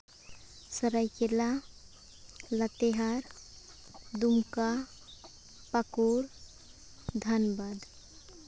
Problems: background sounds at intervals